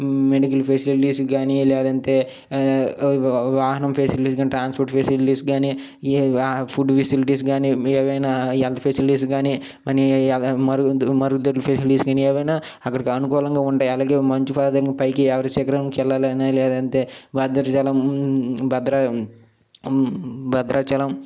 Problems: none marked